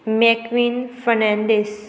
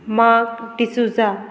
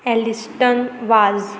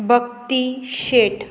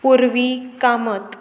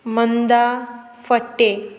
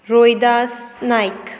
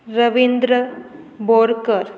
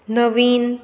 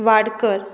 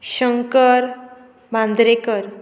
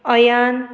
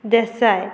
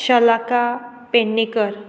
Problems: constant background noise